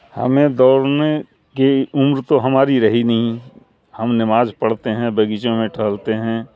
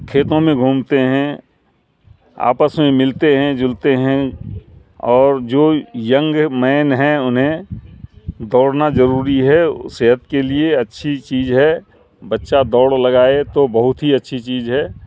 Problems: background sounds at intervals, low volume